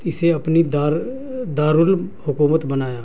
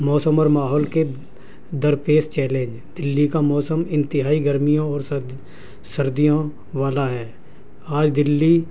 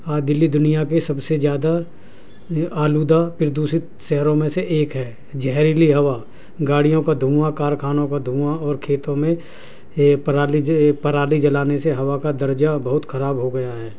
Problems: constant background noise, low volume